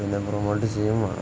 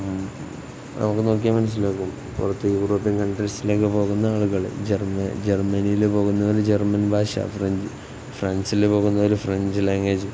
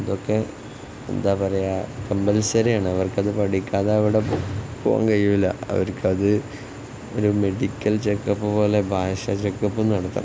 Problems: constant background noise